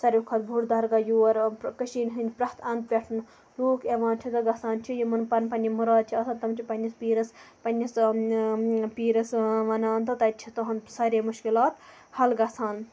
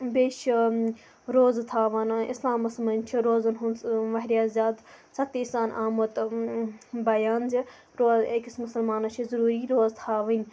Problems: constant background noise